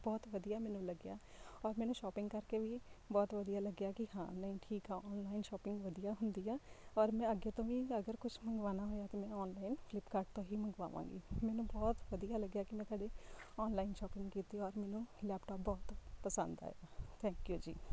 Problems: none marked